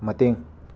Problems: background sounds at intervals